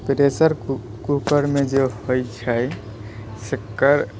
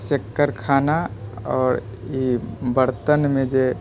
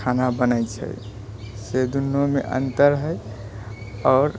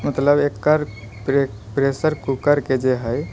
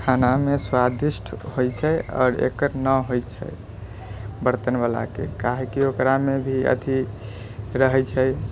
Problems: none marked